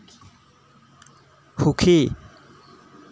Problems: constant background noise